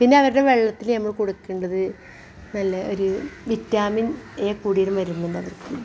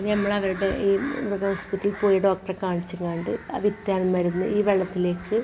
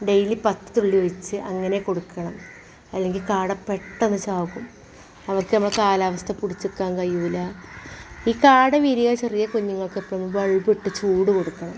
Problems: background sounds at intervals